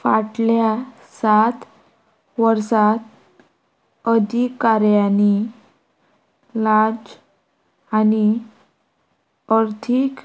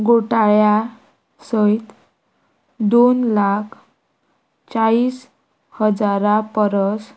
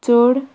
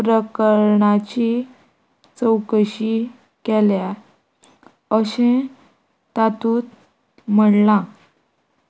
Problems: none marked